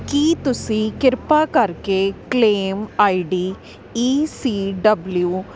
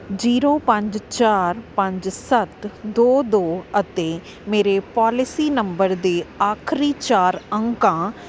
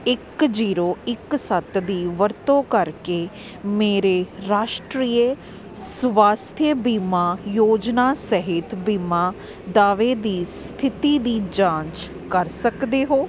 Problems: constant background noise